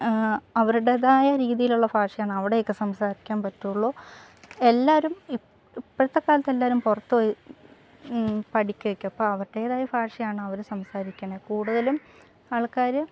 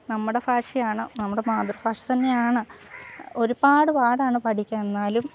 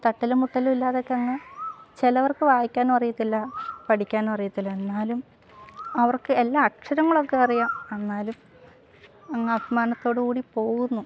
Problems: background sounds at intervals, low volume